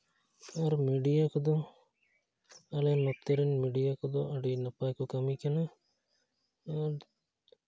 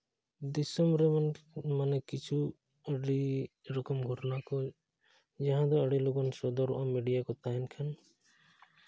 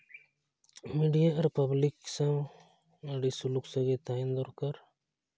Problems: none marked